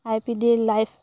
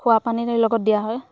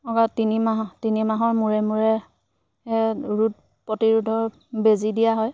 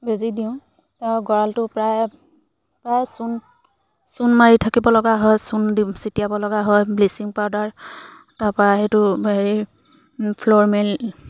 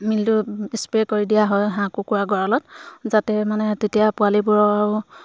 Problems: background sounds at intervals